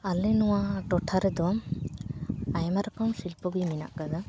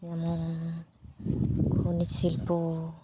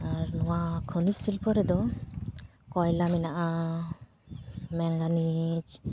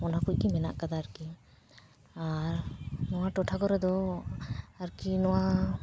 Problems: background conversations at intervals